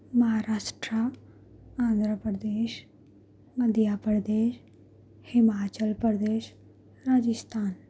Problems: background sounds at intervals